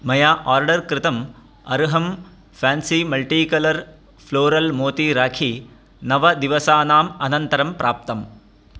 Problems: none marked